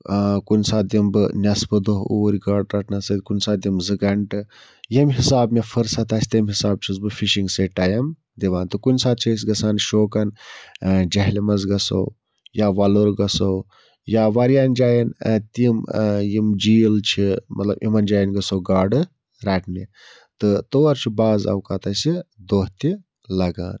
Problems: none marked